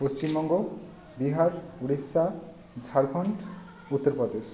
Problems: none marked